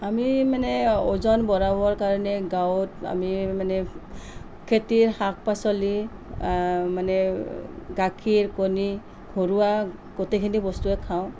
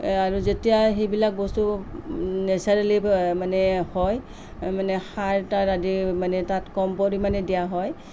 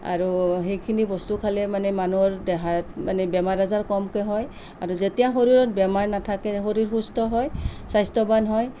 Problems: none marked